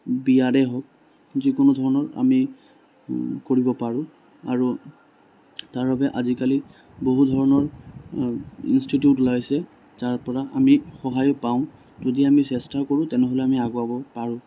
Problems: constant background noise